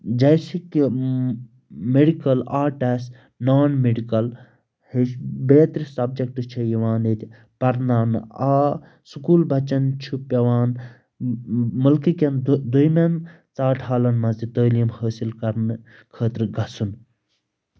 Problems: constant background noise